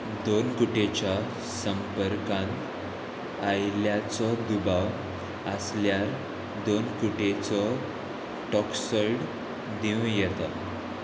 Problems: constant background noise